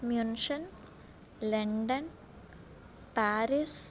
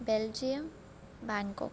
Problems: low volume